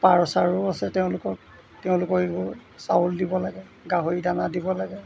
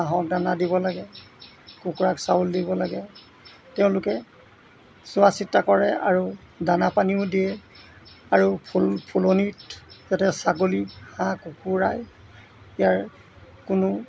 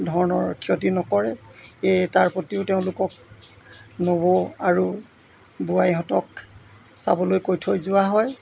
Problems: background sounds at intervals